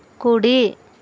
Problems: none marked